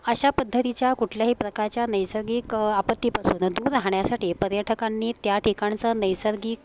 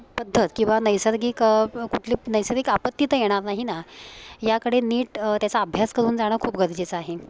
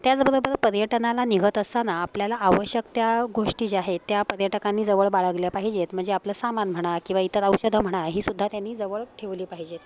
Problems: constant background noise, continuous background conversations